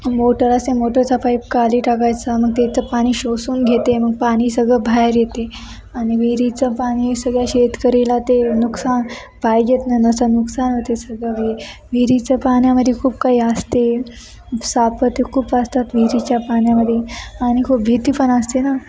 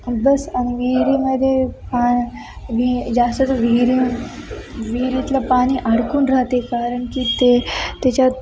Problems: constant background noise, continuous background conversations